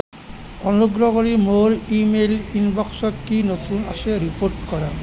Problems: none marked